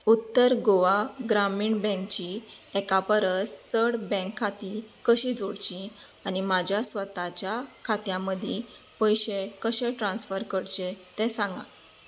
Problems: constant background noise